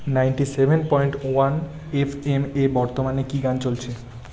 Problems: continuous background conversations